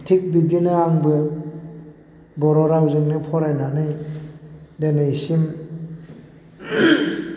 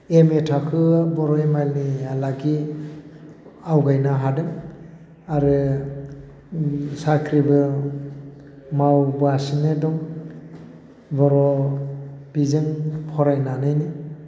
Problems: constant background noise